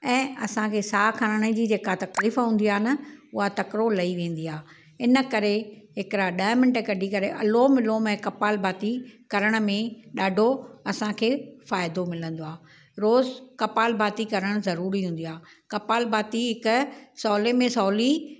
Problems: none marked